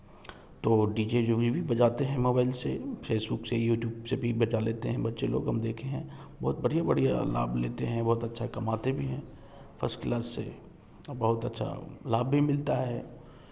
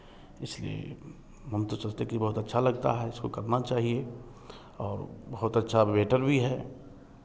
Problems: background sounds at intervals